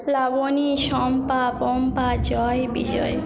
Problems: background conversations at intervals